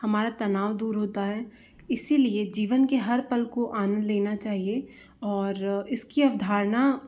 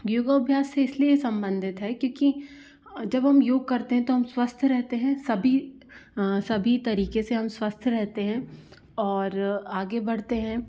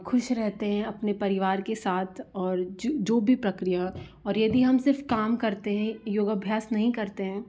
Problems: background sounds at intervals